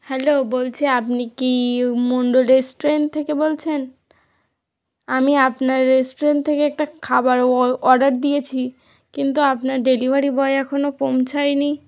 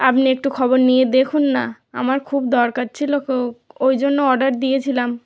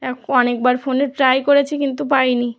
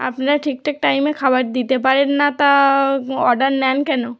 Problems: background sounds at intervals